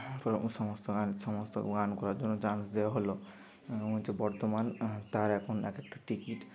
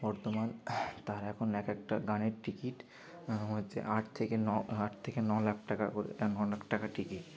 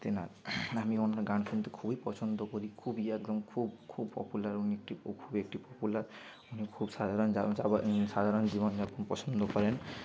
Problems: none marked